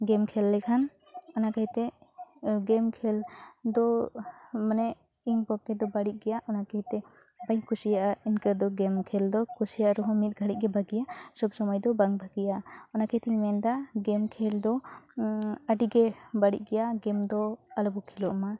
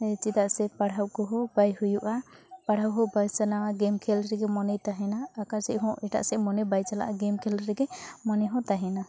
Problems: constant background noise